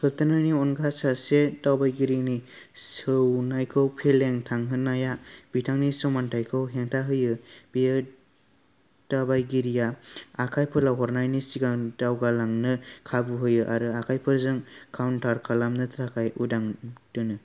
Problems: none marked